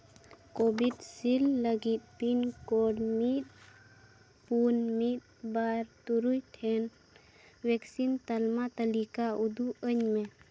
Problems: constant background noise, low volume